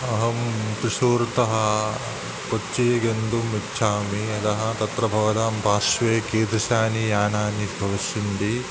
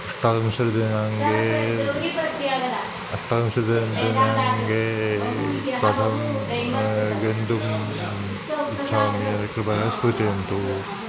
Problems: constant background noise